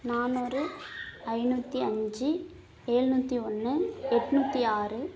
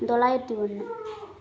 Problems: background sounds at intervals